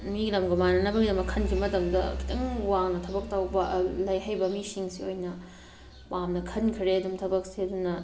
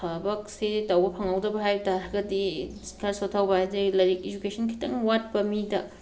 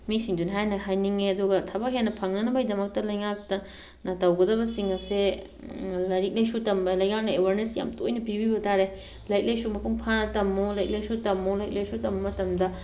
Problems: background sounds at intervals